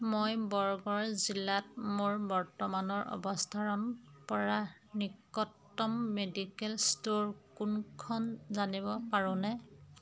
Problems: none marked